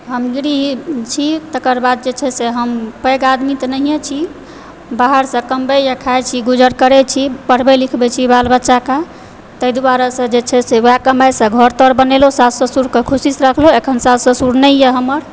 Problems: background sounds at intervals